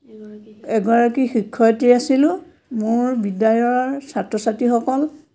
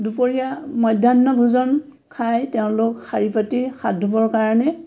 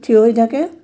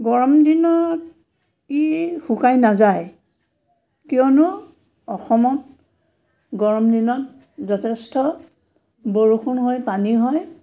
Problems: none marked